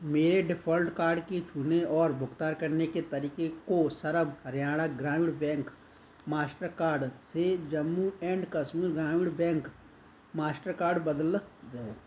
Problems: none marked